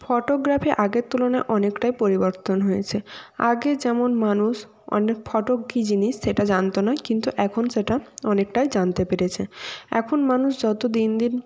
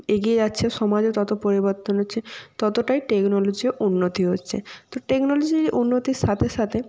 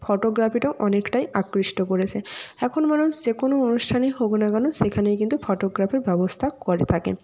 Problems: constant background noise